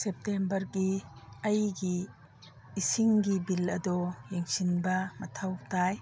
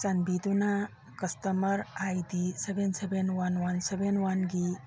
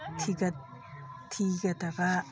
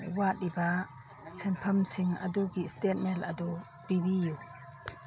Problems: background sounds at intervals, background conversations at intervals